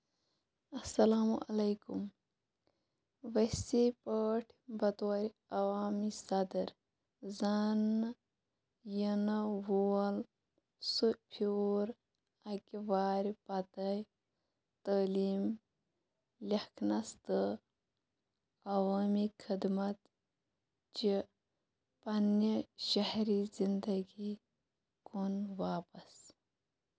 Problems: constant background noise